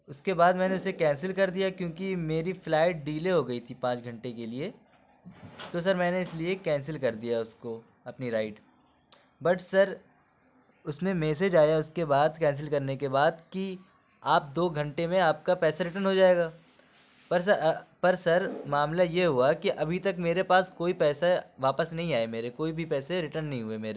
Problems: none marked